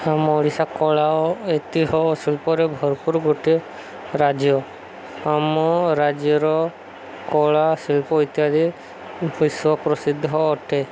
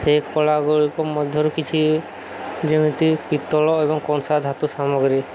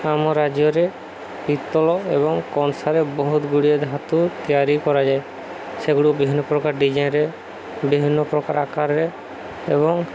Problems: constant background noise